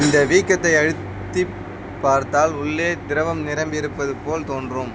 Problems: constant background noise